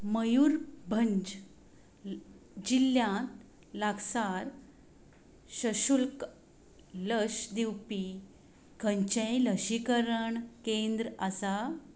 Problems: constant background noise